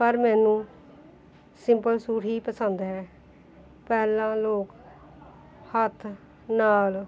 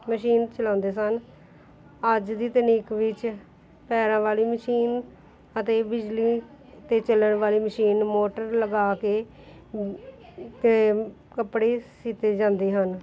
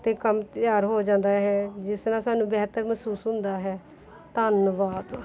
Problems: continuous background conversations